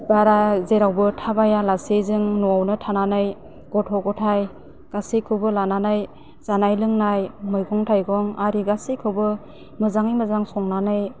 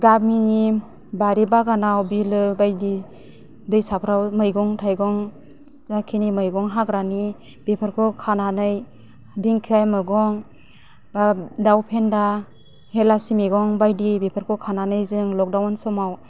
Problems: low volume